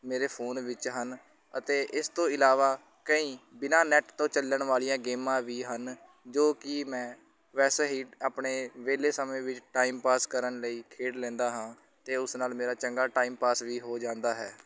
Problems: none marked